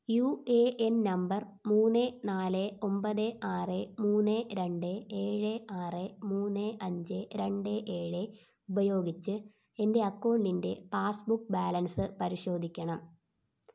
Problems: low volume